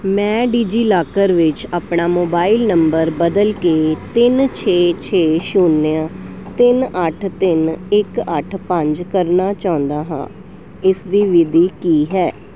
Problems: none marked